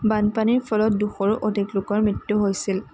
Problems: constant background noise